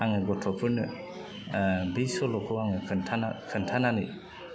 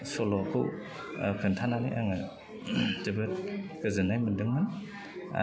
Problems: constant background noise